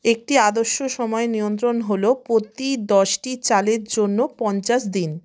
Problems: background sounds at intervals